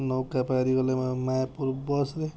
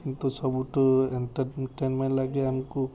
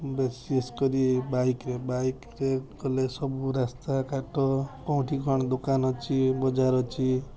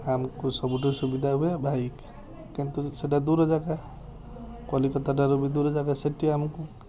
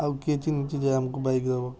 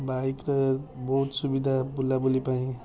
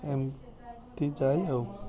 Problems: constant background noise, continuous background conversations